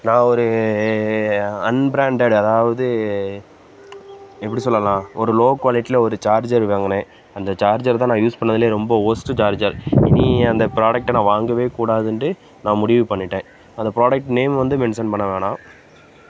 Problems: background sounds at intervals